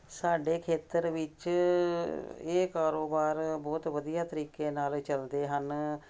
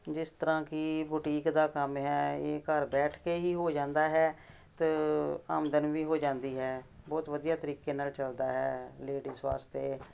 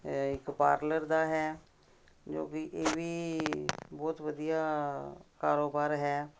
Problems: none marked